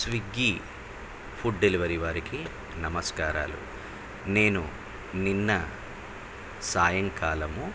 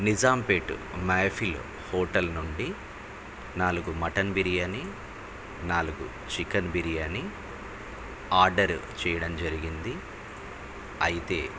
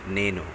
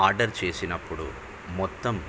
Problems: constant background noise